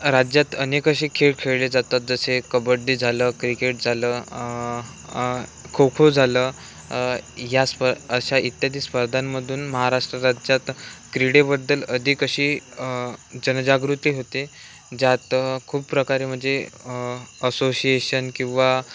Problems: none marked